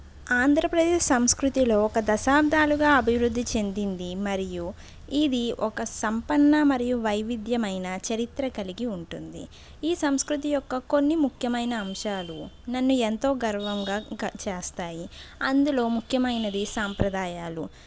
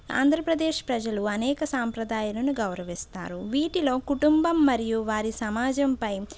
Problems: background sounds at intervals